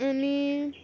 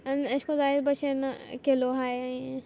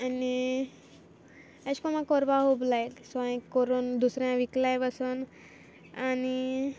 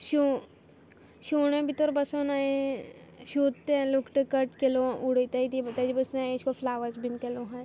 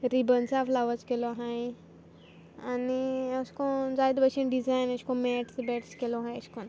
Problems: background sounds at intervals